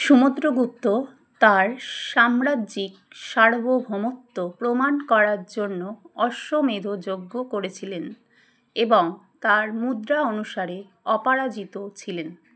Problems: constant background noise